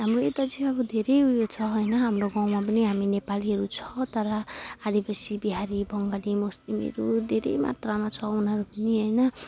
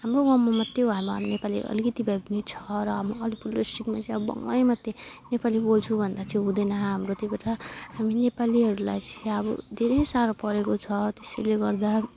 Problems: none marked